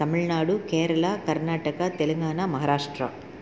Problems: none marked